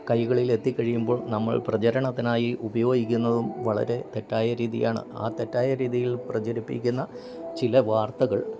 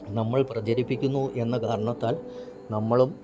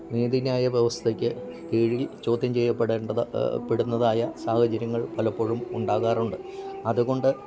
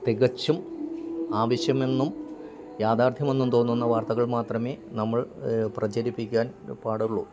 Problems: background sounds at intervals, low volume